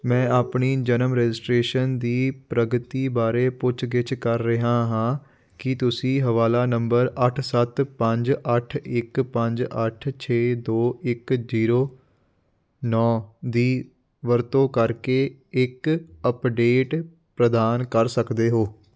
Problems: background sounds at intervals